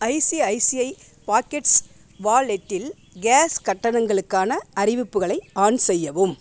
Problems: background sounds at intervals